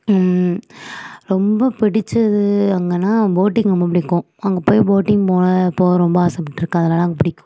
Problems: none marked